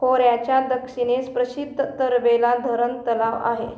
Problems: constant background noise